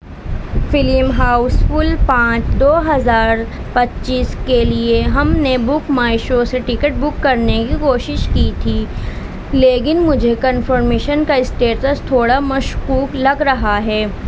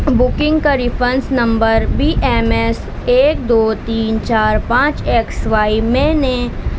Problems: constant background noise